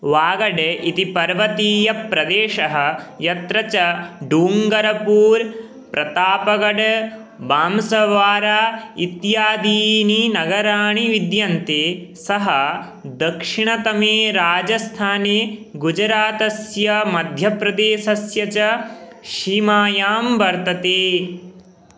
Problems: none marked